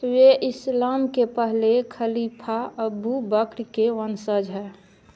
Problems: none marked